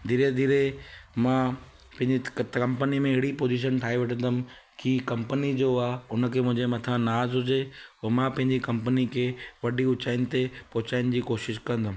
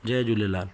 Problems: constant background noise